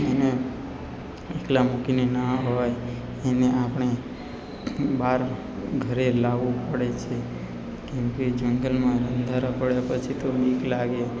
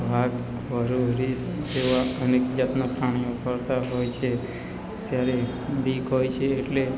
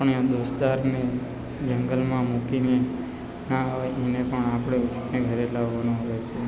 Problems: constant background noise